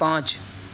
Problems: none marked